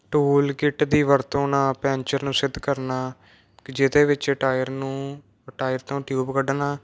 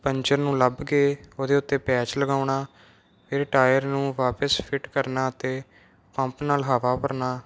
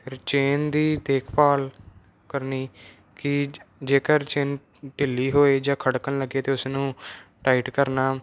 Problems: none marked